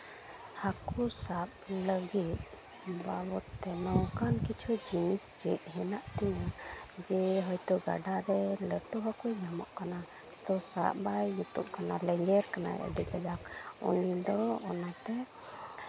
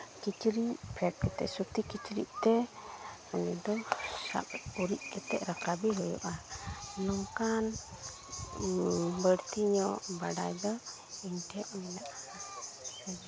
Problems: constant background noise, continuous background conversations